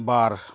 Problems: none marked